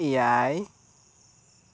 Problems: constant background noise